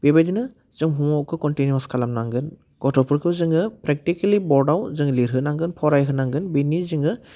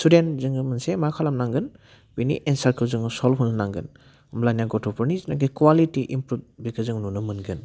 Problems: low volume